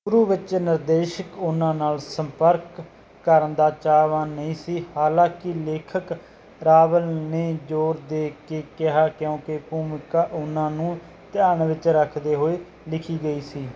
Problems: background sounds at intervals